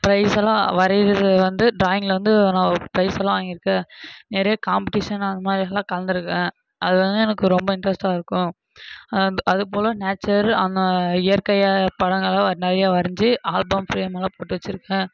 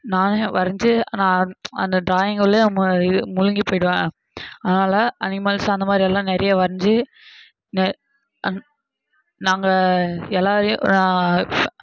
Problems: constant background noise